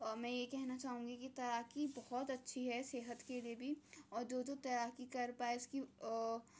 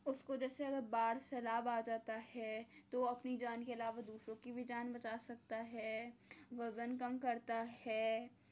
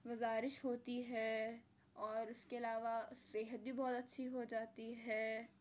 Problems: low volume